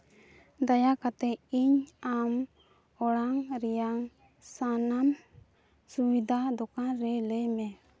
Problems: none marked